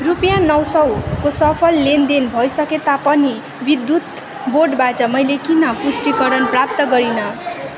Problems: constant background noise, continuous background conversations